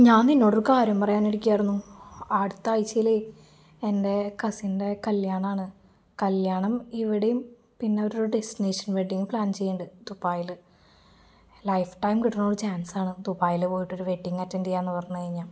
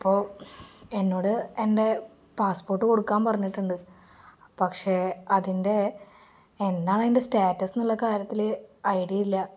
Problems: none marked